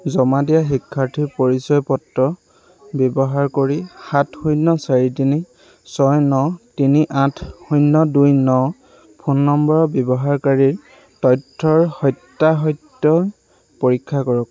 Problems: constant background noise